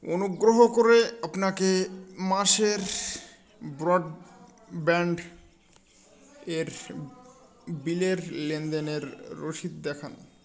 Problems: constant background noise